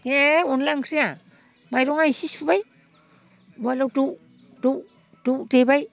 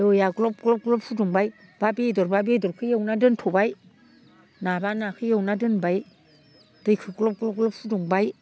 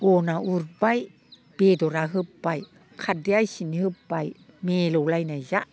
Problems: none marked